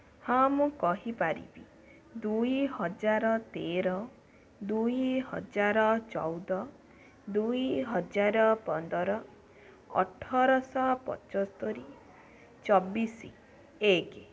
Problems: none marked